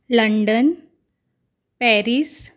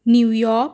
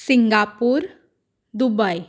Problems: constant background noise